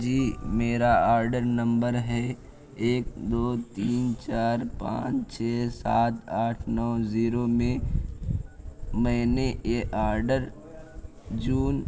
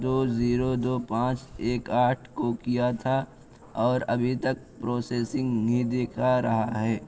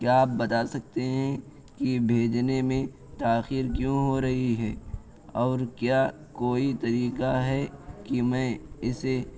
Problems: constant background noise